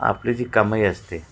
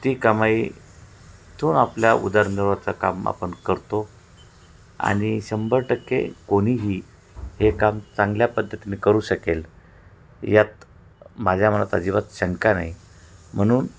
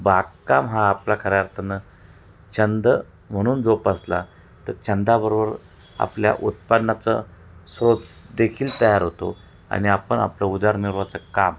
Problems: none marked